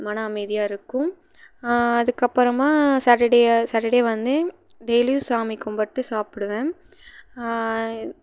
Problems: background sounds at intervals